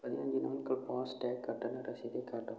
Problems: low volume